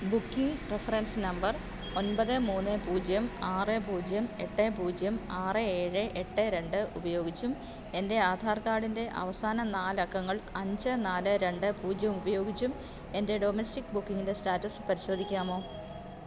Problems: constant background noise, low volume